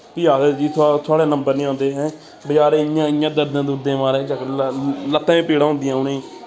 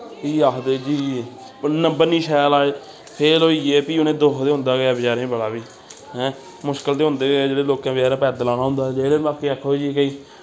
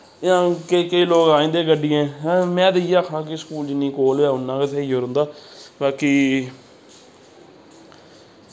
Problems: constant background noise